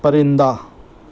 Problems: constant background noise